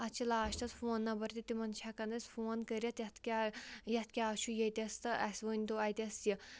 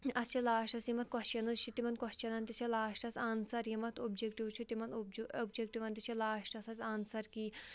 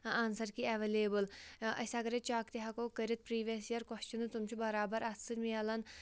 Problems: background sounds at intervals